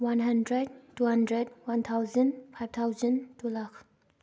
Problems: none marked